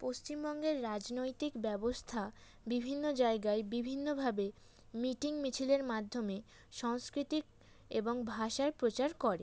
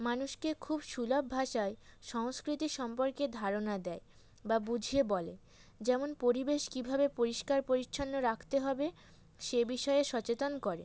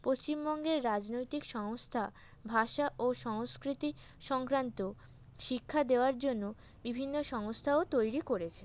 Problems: none marked